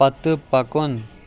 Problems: none marked